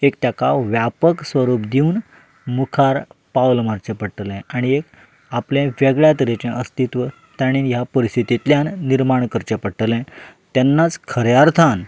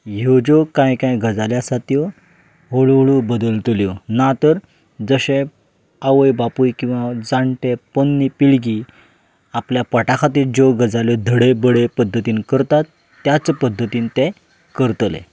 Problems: background sounds at intervals